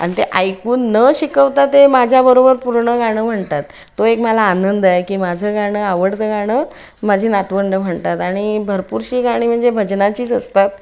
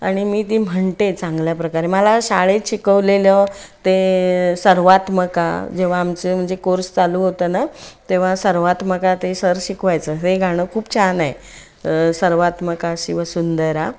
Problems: background sounds at intervals